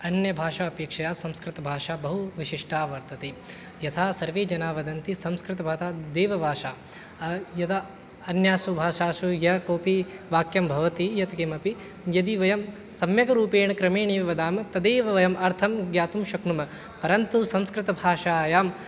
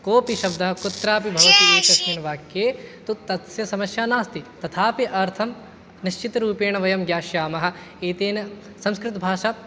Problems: background conversations at intervals